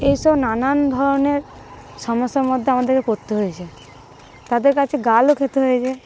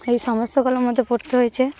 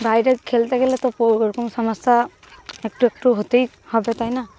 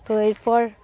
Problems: constant background noise, continuous background conversations